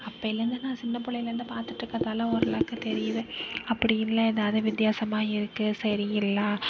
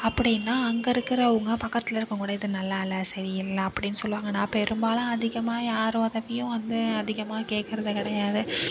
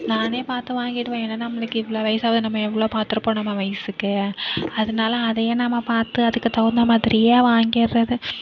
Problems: background conversations at intervals